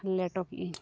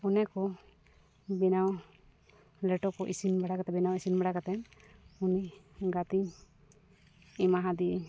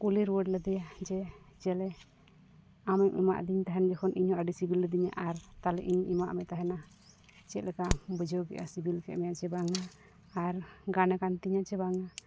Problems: background sounds at intervals